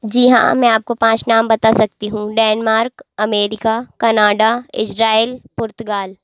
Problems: constant background noise